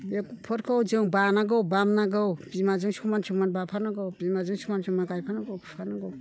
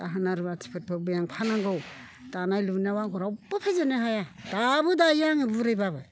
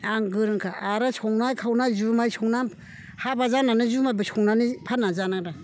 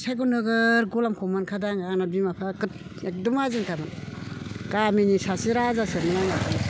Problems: background conversations at intervals